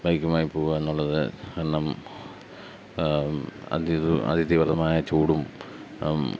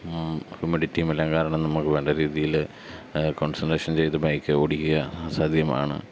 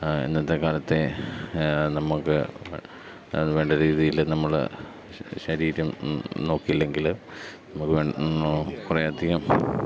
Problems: none marked